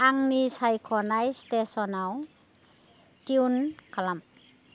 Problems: none marked